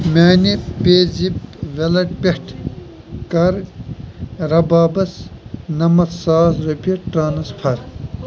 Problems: constant background noise